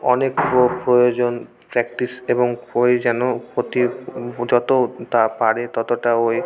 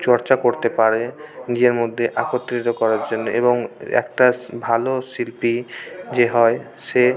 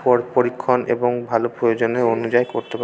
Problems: constant background noise, background conversations at intervals